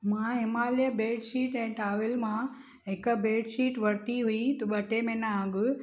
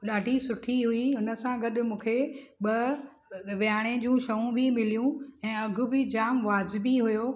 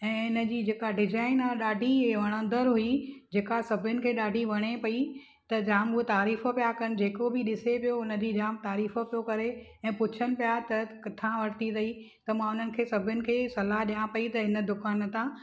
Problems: none marked